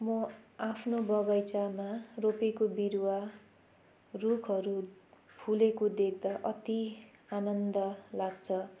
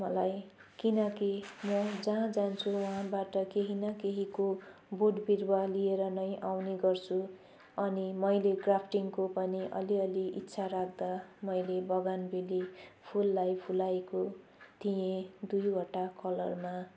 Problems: none marked